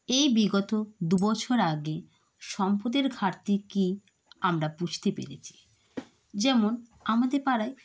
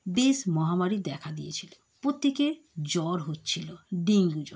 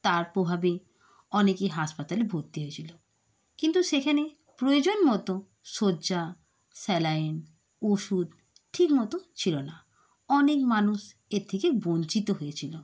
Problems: constant background noise